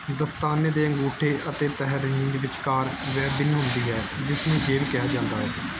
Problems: none marked